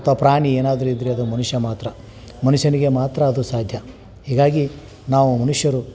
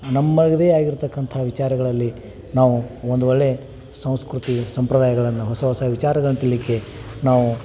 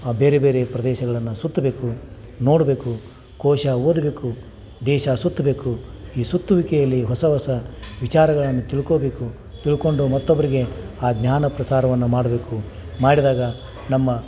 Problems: none marked